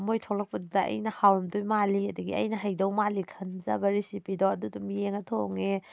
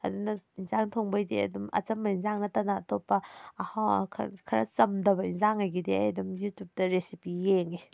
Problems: none marked